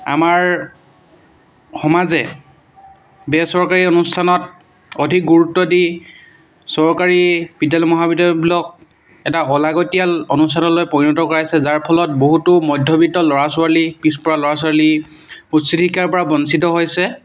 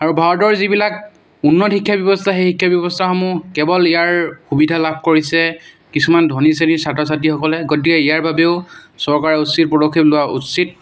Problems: background sounds at intervals